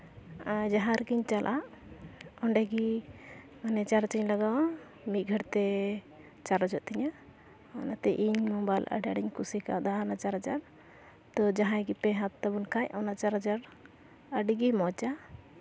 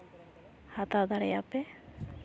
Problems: constant background noise, background conversations at intervals